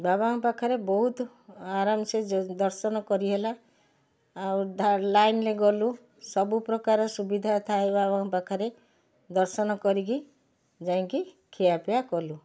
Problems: none marked